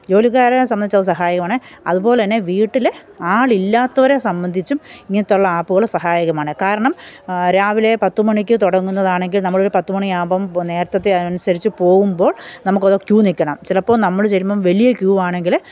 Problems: none marked